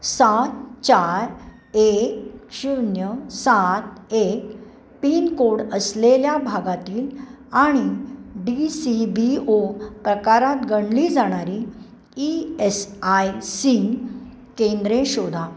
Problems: background sounds at intervals